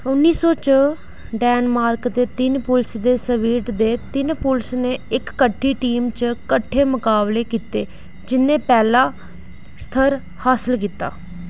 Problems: none marked